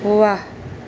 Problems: none marked